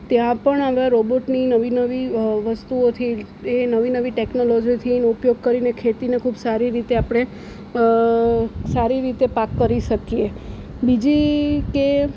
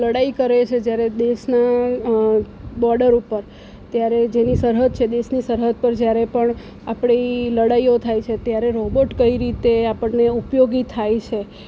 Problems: none marked